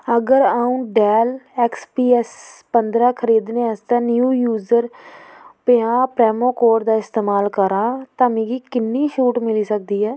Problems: none marked